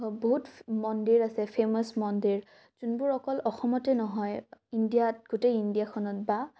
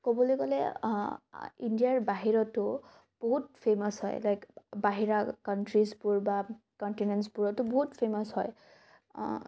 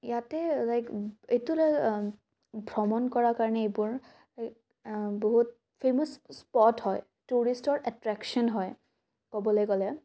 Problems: none marked